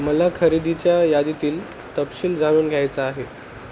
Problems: constant background noise